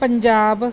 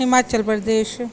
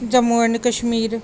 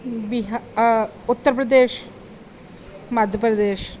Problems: background sounds at intervals